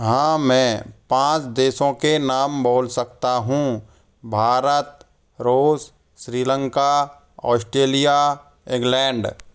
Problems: constant background noise